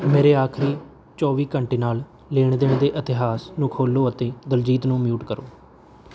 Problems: background sounds at intervals